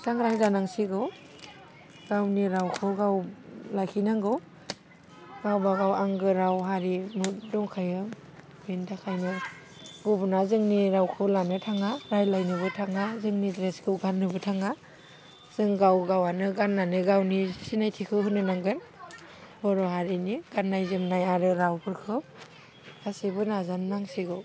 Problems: low volume